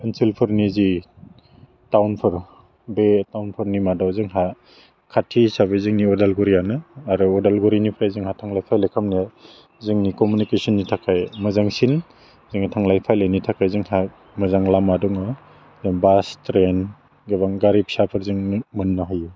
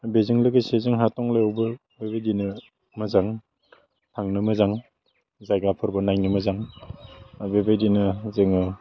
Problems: low volume